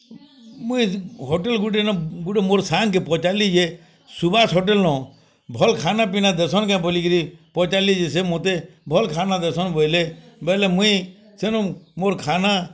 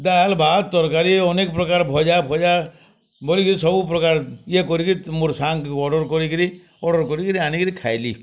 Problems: constant background noise